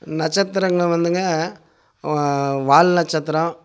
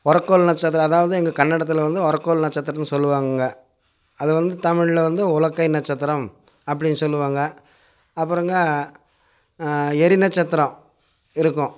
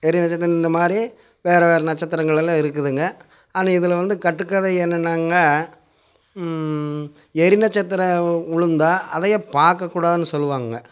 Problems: constant background noise